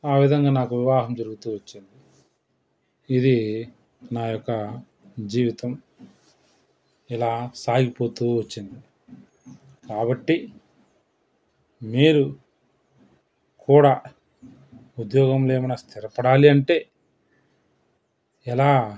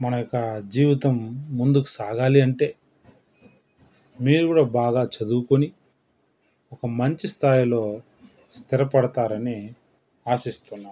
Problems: background sounds at intervals